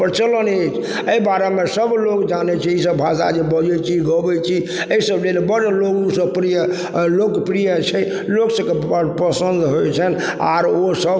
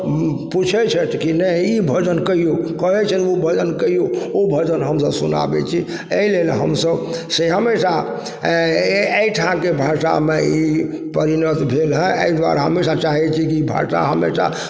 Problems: background sounds at intervals